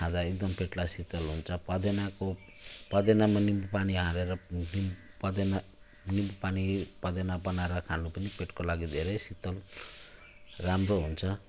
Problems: constant background noise